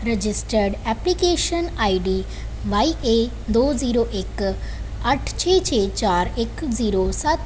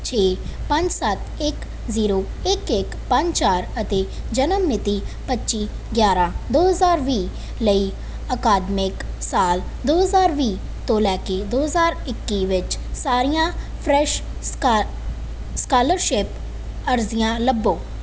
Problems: none marked